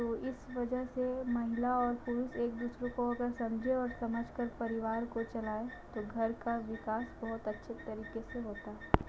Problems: constant background noise, low volume